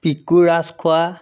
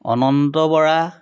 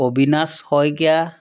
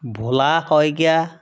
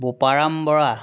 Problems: constant background noise